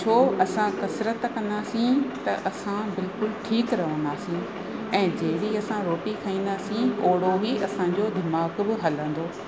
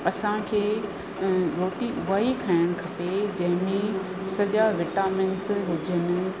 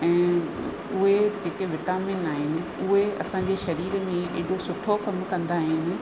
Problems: constant background noise